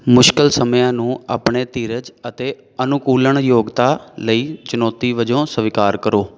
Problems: background sounds at intervals, background conversations at intervals